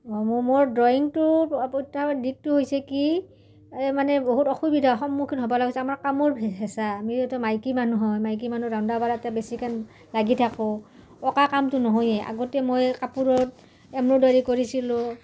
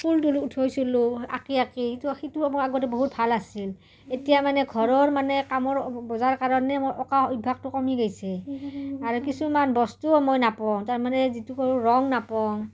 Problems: background conversations at intervals